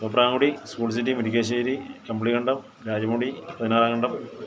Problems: none marked